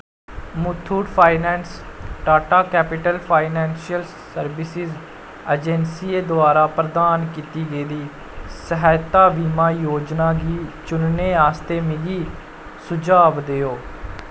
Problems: constant background noise